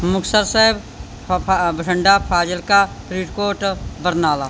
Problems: background sounds at intervals